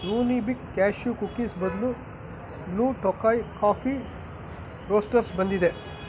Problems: constant background noise